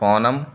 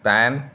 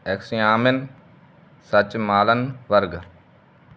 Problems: background sounds at intervals